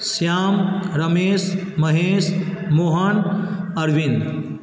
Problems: constant background noise